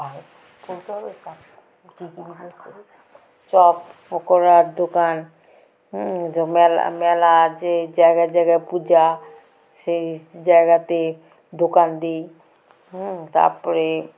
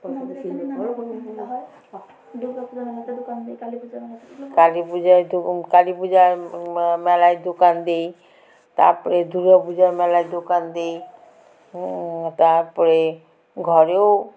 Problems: background sounds at intervals, continuous background conversations